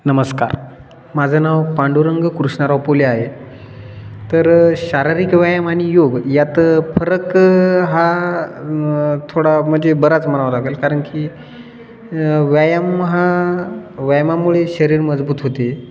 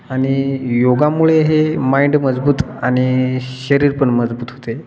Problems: constant background noise